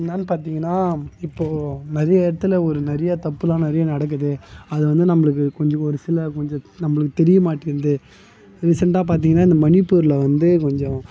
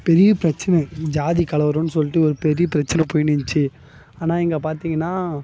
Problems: background sounds at intervals